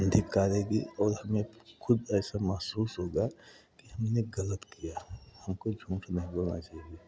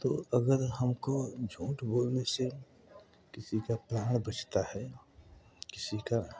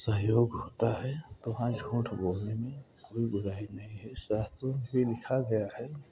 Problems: background sounds at intervals, continuous background conversations